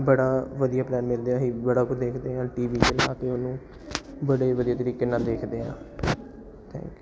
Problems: none marked